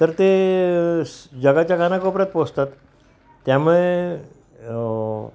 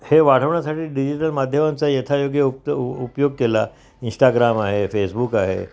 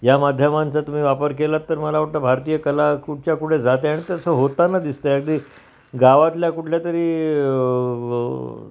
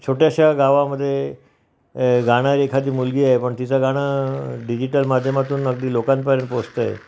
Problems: background sounds at intervals